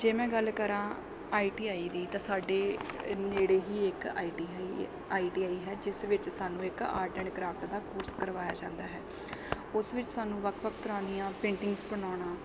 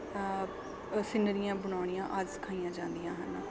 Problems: background sounds at intervals, background conversations at intervals